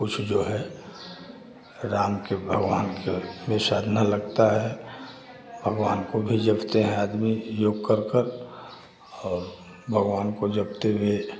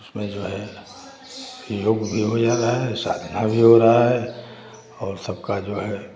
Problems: none marked